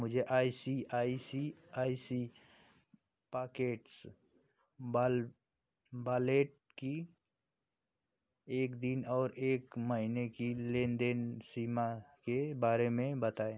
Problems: constant background noise